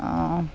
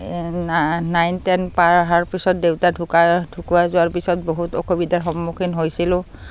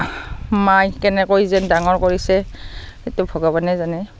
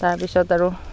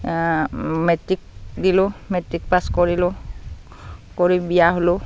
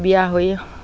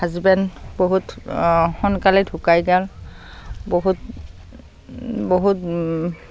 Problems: constant background noise